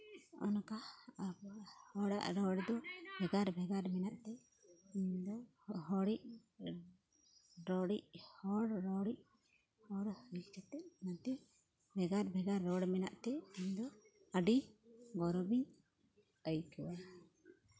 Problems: background conversations at intervals